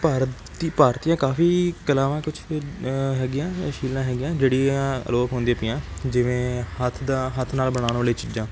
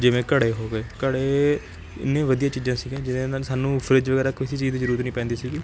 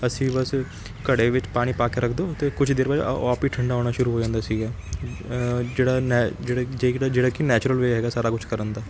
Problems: none marked